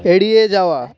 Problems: background sounds at intervals, background conversations at intervals